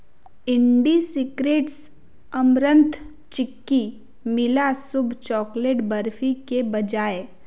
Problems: none marked